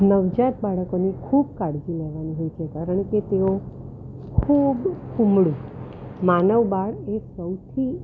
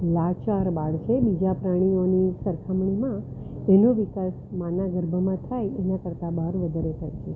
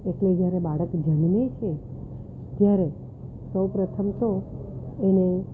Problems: constant background noise